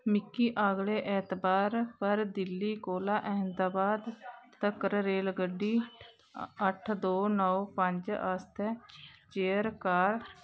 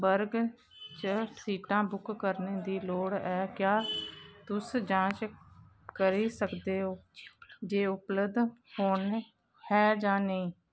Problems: none marked